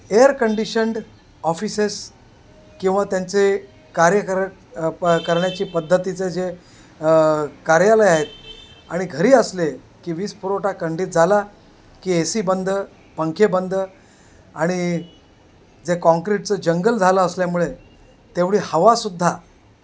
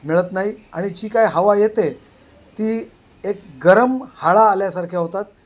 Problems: constant background noise, background conversations at intervals